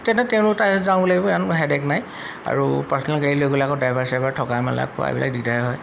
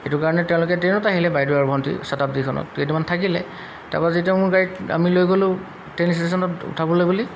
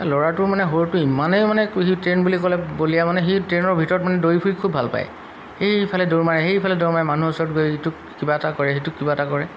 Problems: background sounds at intervals